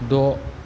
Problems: constant background noise